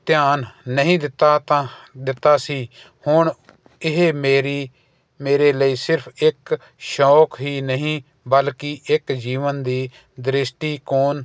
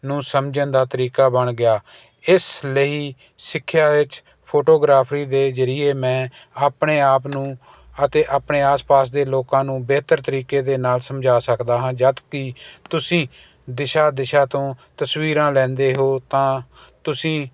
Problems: none marked